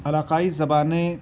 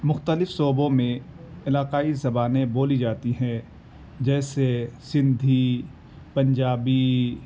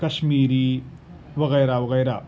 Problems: none marked